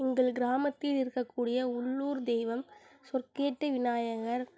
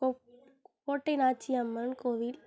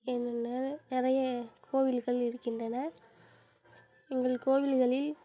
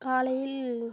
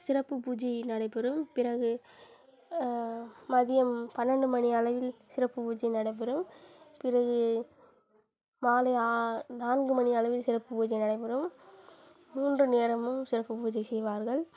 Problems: constant background noise